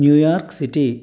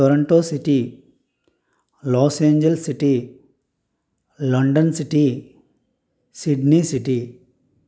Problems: none marked